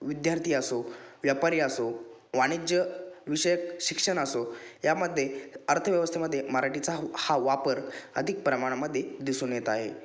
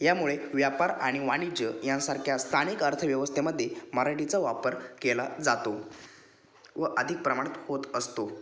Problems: none marked